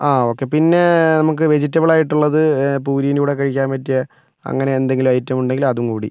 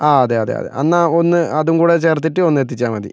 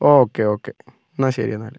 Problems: none marked